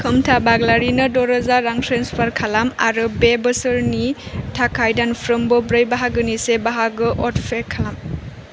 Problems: constant background noise